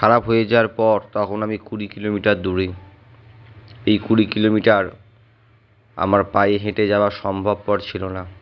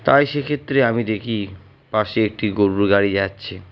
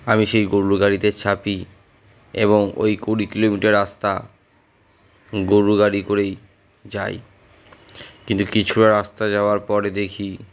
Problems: none marked